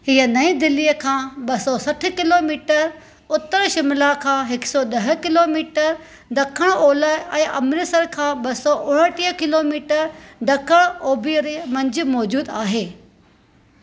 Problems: constant background noise